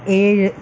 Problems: background sounds at intervals, low volume